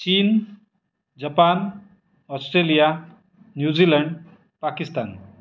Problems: background sounds at intervals